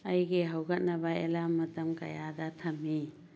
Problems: low volume